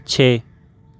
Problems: none marked